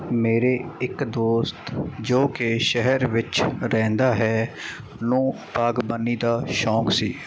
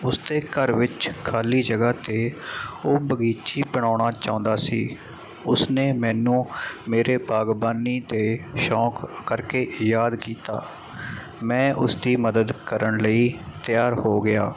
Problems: constant background noise